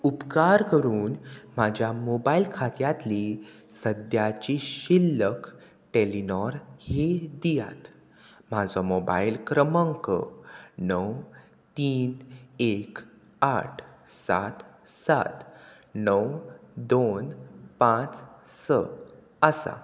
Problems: none marked